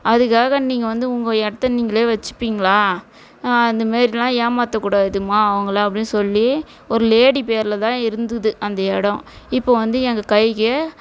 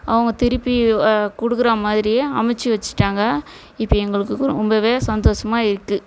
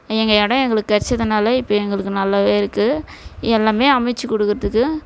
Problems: none marked